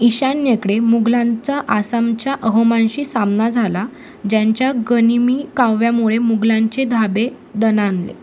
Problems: constant background noise